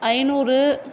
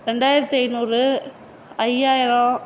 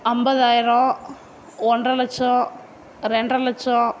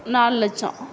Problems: none marked